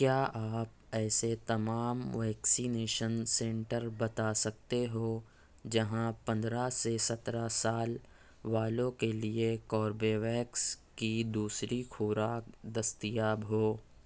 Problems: none marked